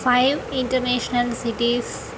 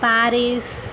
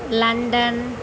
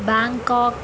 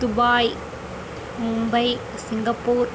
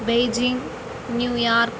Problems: none marked